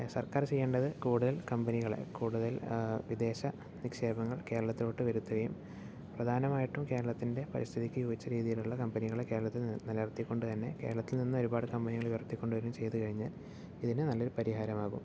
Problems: none marked